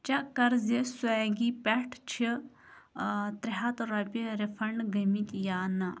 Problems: background sounds at intervals